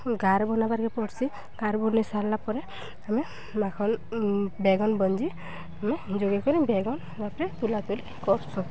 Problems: none marked